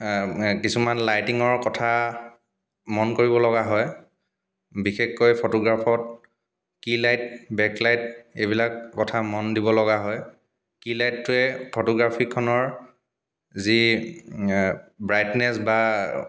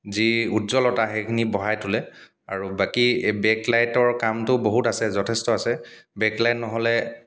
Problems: background sounds at intervals, background conversations at intervals